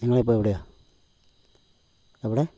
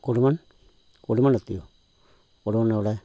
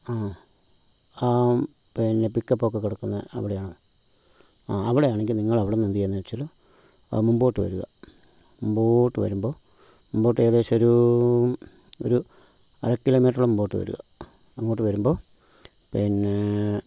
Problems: low volume